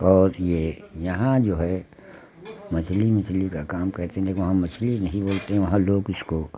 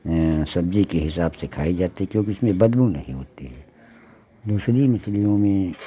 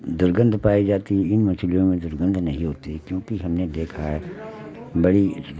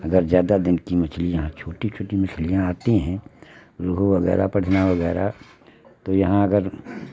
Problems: constant background noise